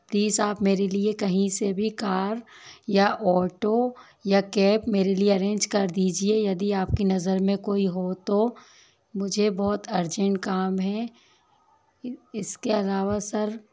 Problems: constant background noise